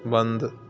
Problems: constant background noise